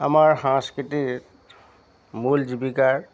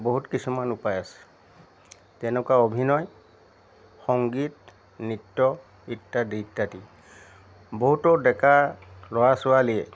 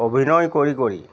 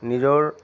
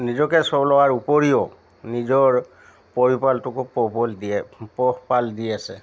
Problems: constant background noise